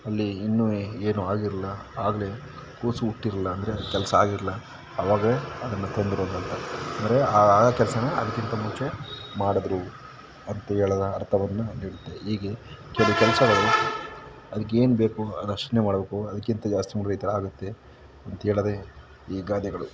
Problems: background sounds at intervals